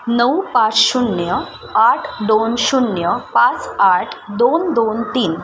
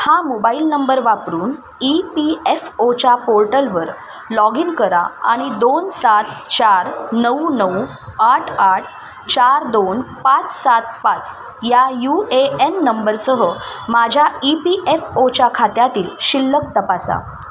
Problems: constant background noise, background conversations at intervals